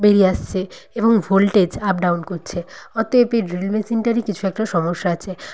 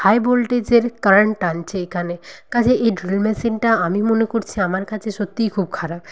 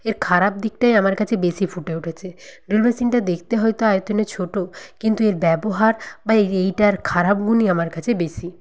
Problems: none marked